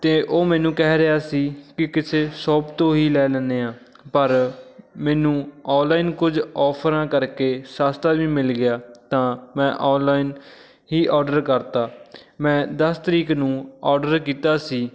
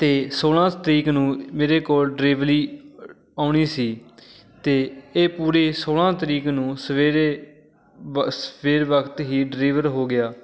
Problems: background sounds at intervals, background conversations at intervals